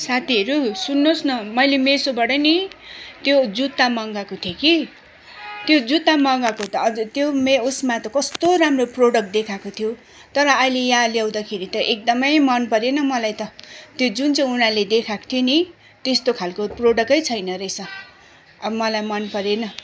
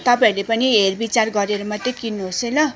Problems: constant background noise